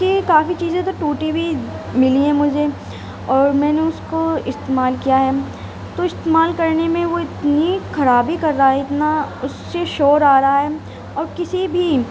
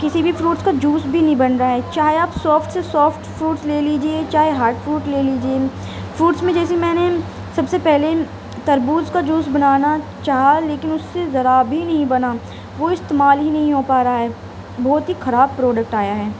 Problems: constant background noise